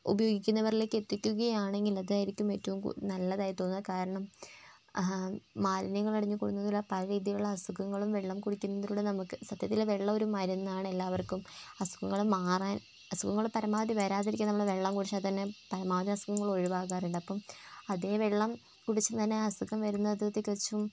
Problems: background sounds at intervals, low volume